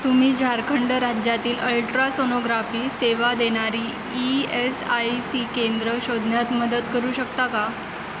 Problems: constant background noise